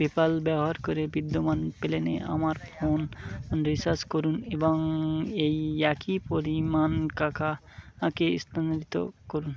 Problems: constant background noise